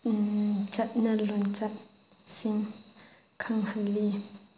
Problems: background sounds at intervals